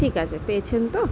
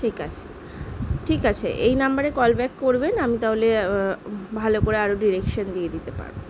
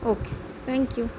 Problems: continuous background conversations